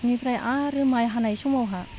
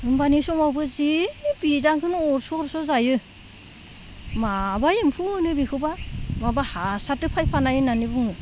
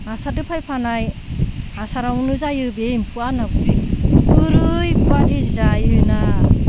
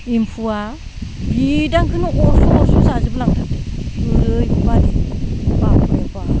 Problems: background sounds at intervals, low volume